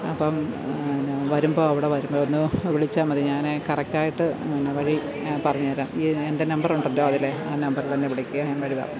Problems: constant background noise, background conversations at intervals